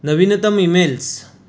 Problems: none marked